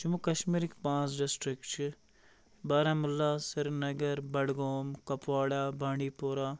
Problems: constant background noise